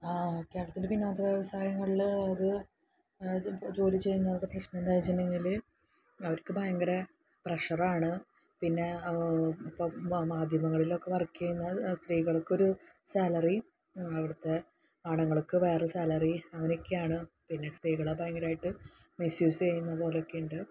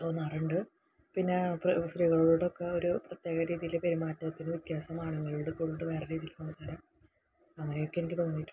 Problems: low volume